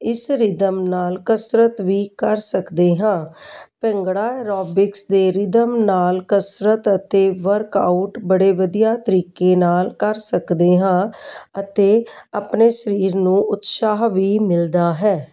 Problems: none marked